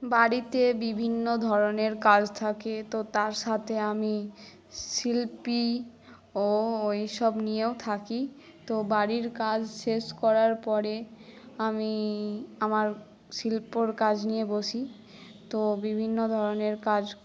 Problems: background conversations at intervals